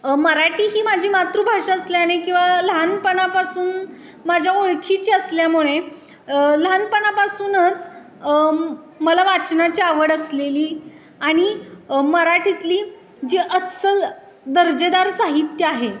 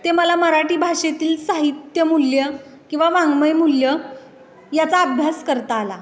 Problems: none marked